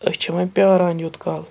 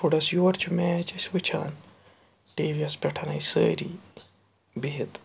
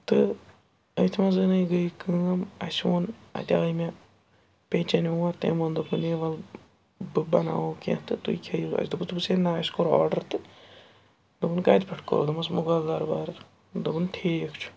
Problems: background sounds at intervals, background conversations at intervals